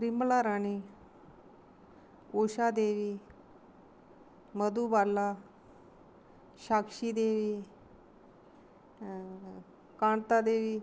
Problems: constant background noise